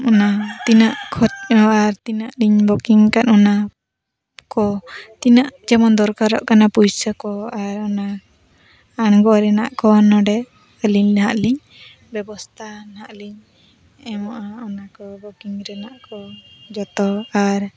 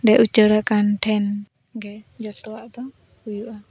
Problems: background sounds at intervals, background conversations at intervals